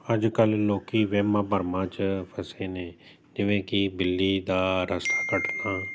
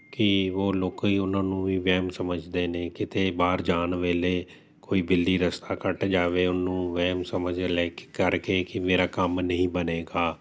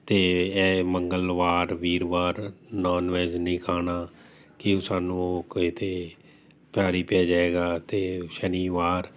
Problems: constant background noise